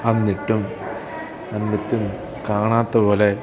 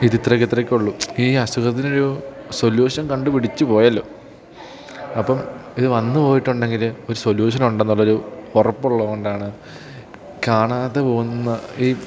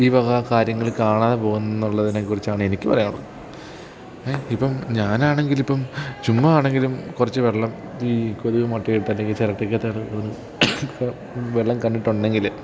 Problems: background sounds at intervals